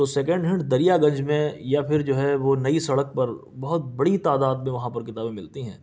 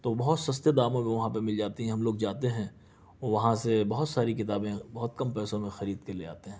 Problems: none marked